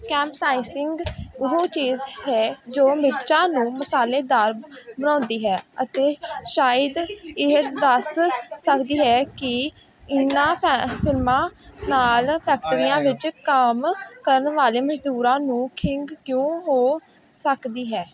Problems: background sounds at intervals